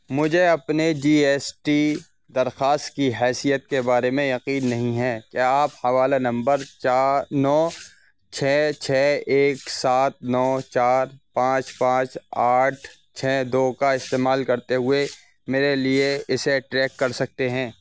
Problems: constant background noise